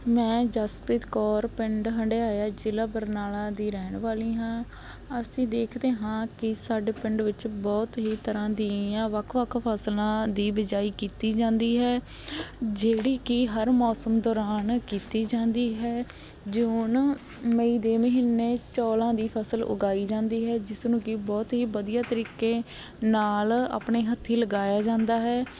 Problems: background sounds at intervals